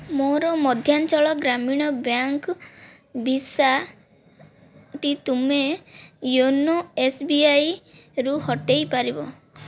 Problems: background sounds at intervals